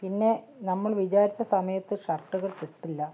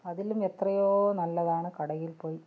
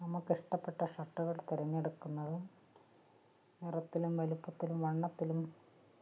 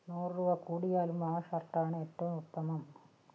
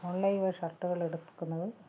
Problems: low volume